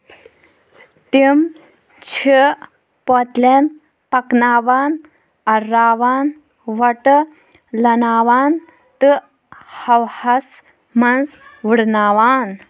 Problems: background conversations at intervals